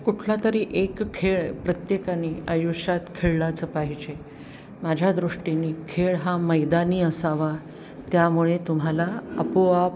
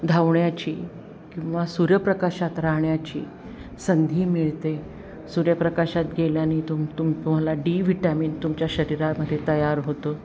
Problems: none marked